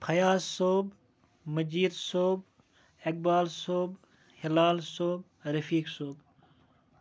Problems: background conversations at intervals